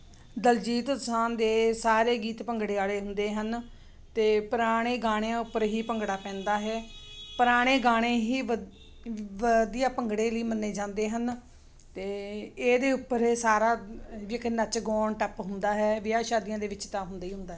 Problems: constant background noise